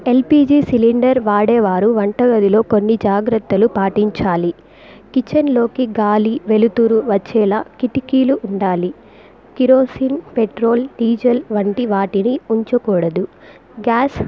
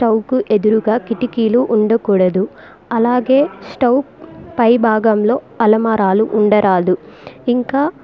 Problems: background conversations at intervals